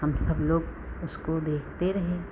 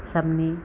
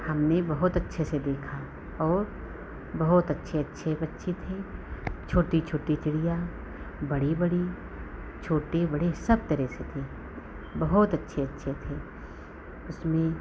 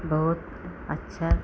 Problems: background sounds at intervals